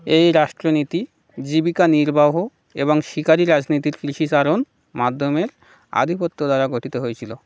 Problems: none marked